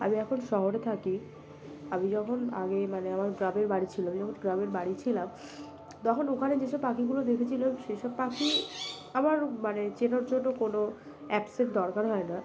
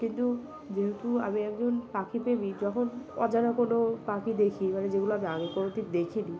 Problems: constant background noise, background conversations at intervals